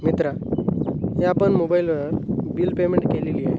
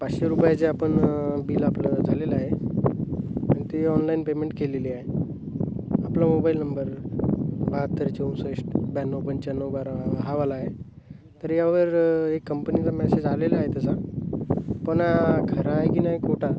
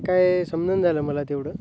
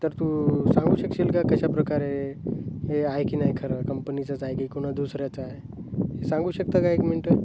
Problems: constant background noise, continuous background conversations